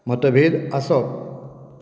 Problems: background sounds at intervals